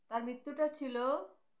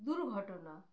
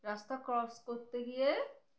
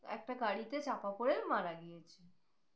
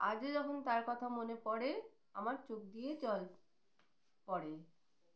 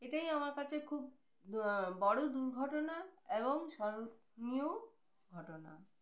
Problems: none marked